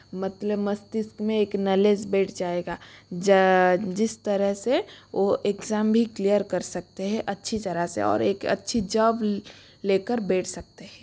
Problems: constant background noise